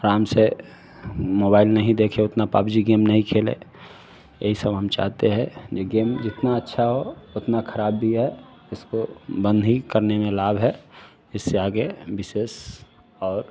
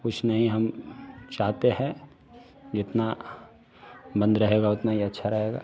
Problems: low volume